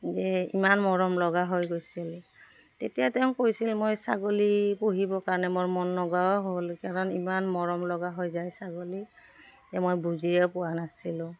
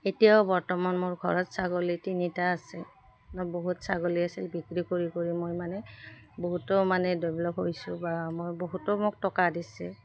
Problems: none marked